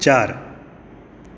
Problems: constant background noise